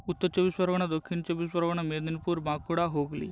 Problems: constant background noise